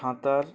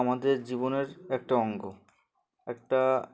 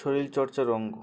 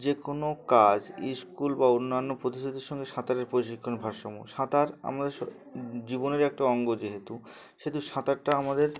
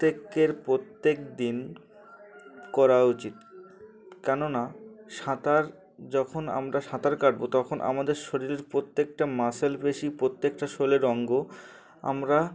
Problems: background sounds at intervals, continuous background conversations